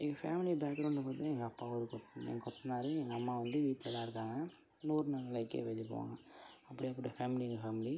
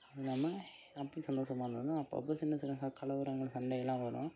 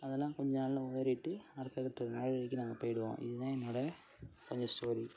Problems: low volume